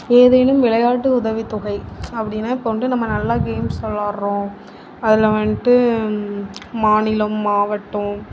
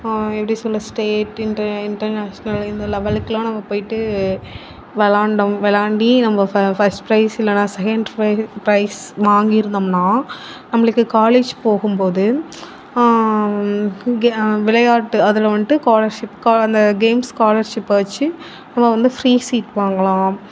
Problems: none marked